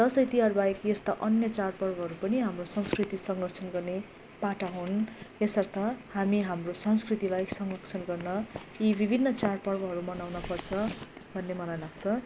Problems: background sounds at intervals